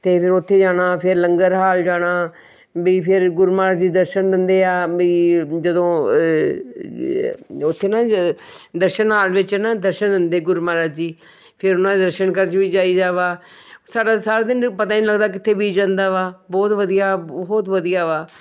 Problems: background sounds at intervals